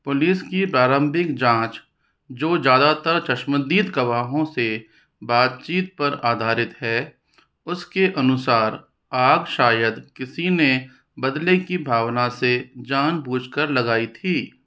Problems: none marked